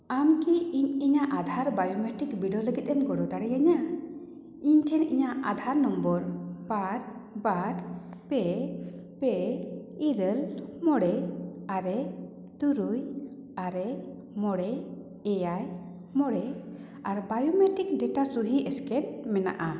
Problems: echo